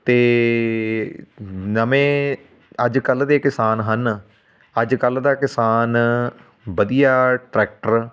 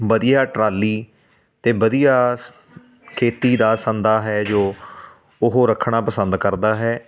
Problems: constant background noise